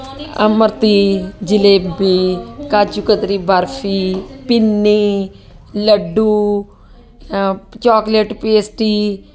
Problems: constant background noise